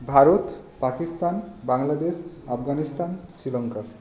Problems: none marked